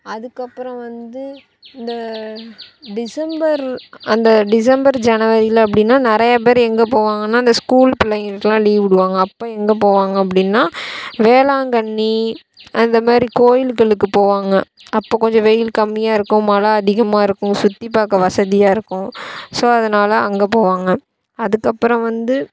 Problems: none marked